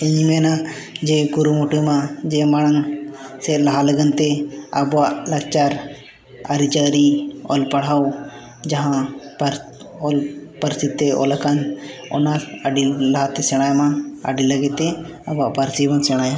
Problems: none marked